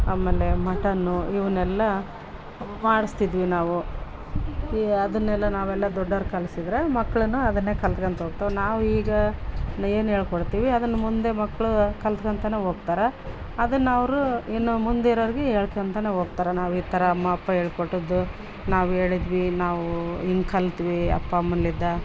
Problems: background sounds at intervals